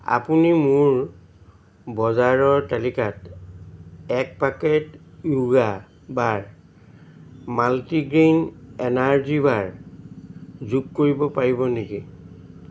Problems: constant background noise